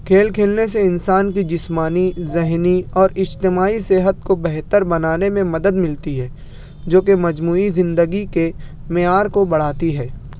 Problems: background sounds at intervals